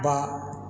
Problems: background sounds at intervals